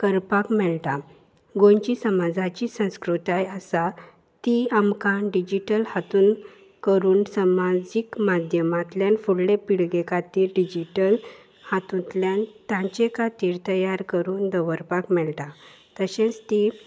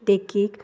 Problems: none marked